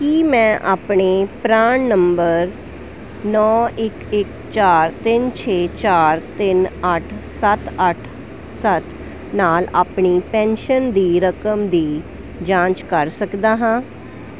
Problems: constant background noise